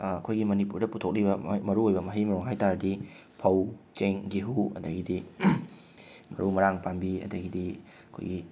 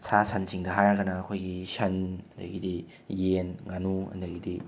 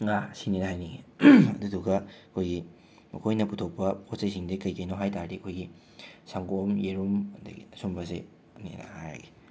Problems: none marked